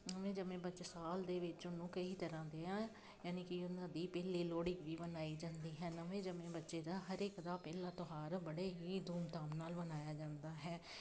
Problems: constant background noise